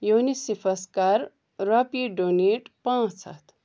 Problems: none marked